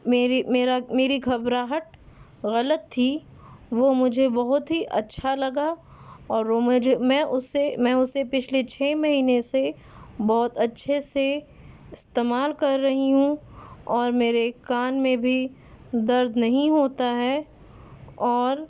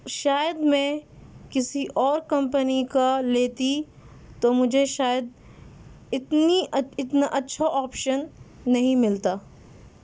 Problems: constant background noise